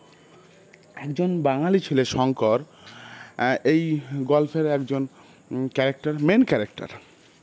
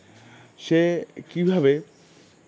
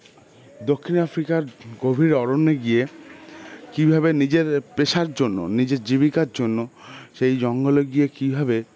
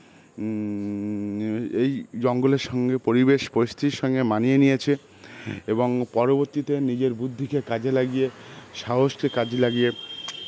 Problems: constant background noise, background conversations at intervals